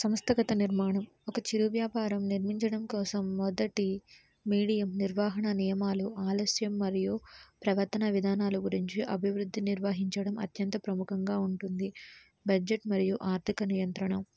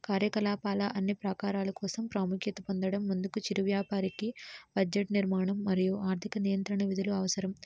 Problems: low volume